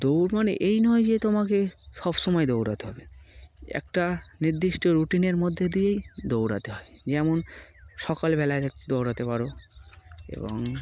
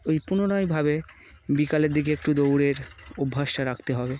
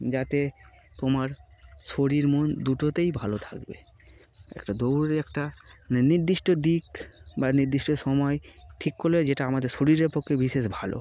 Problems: background sounds at intervals